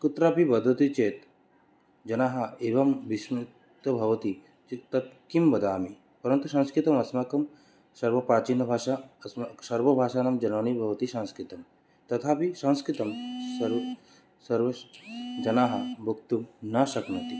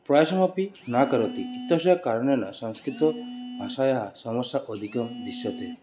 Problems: constant background noise